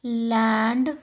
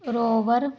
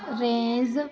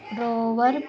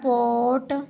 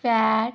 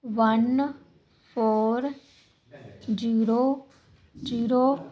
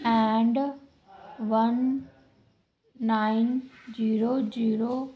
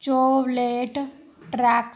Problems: none marked